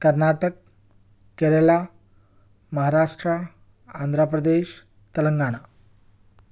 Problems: none marked